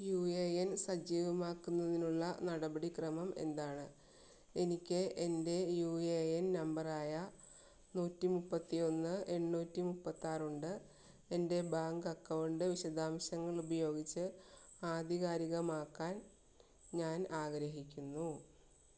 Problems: low volume